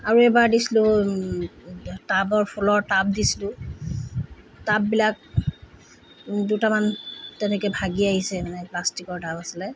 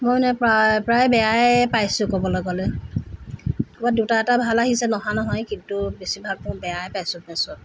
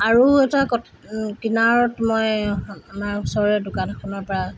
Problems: constant background noise